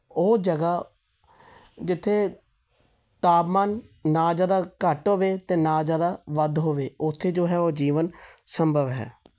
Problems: none marked